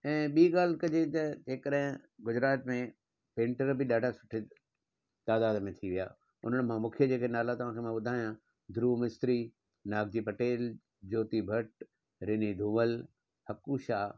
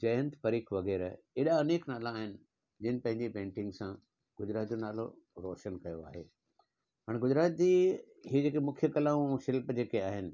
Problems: none marked